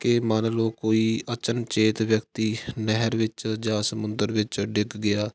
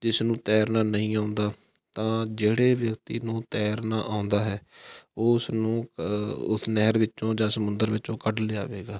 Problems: background sounds at intervals